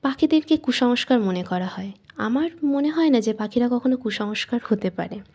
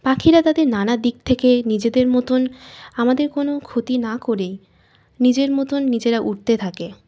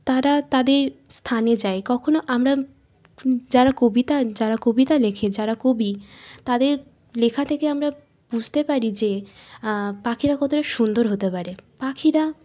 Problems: constant background noise